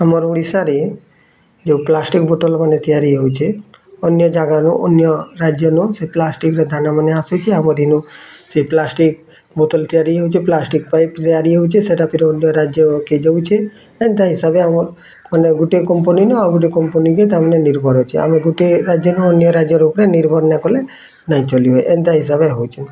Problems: constant background noise, continuous background conversations